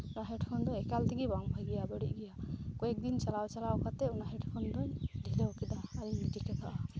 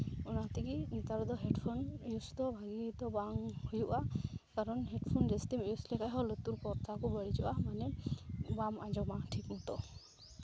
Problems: none marked